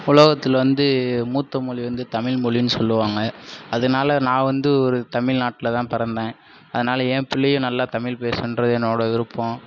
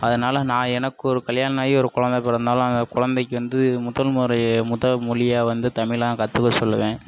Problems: none marked